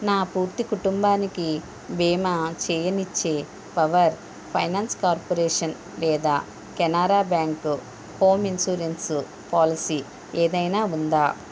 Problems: constant background noise